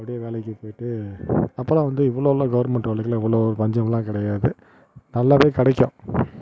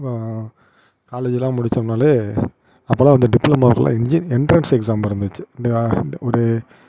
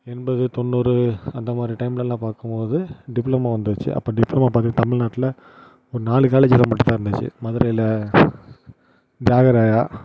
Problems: constant background noise